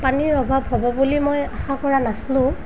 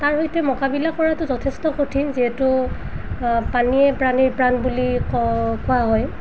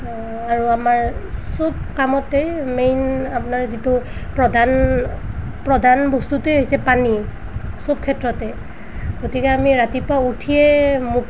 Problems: background sounds at intervals